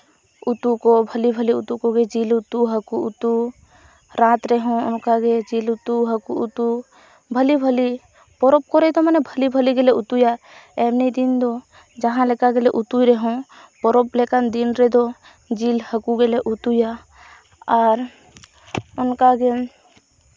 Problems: none marked